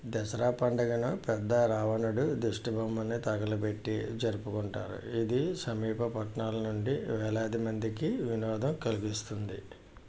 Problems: low volume